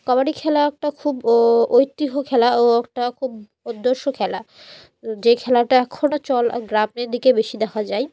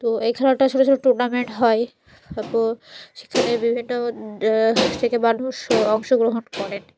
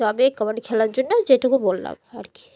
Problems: none marked